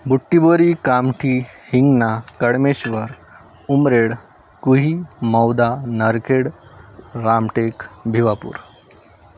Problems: none marked